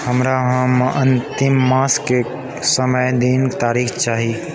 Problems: continuous background conversations